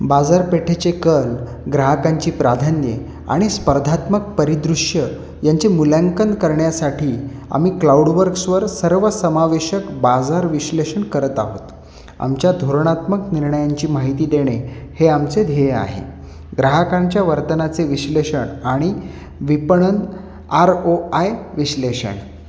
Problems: constant background noise, echo